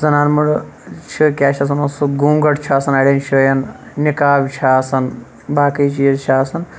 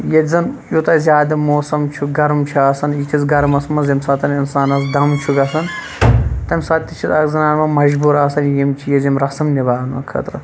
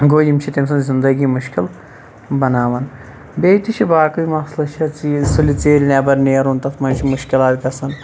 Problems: constant background noise